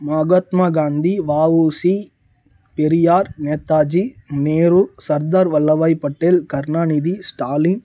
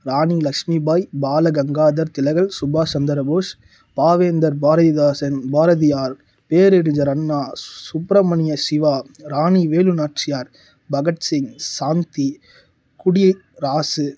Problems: low volume